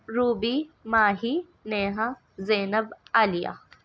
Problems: none marked